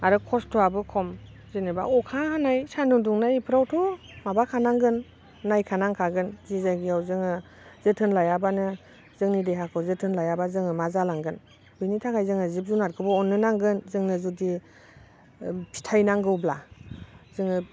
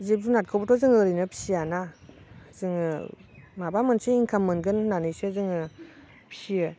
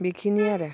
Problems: constant background noise